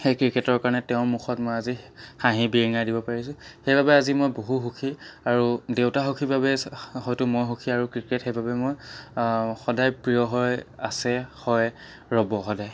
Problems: background sounds at intervals